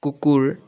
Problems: background conversations at intervals